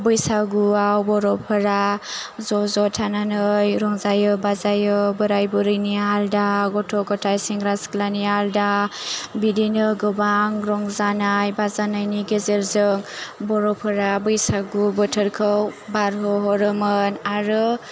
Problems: none marked